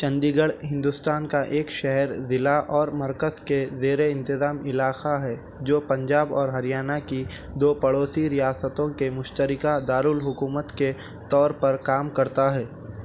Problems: none marked